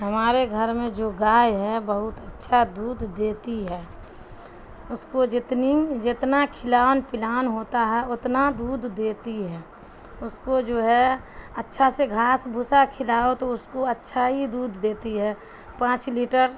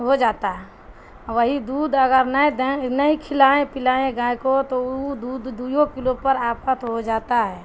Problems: constant background noise